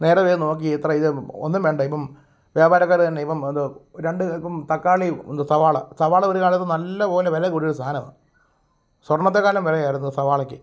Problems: none marked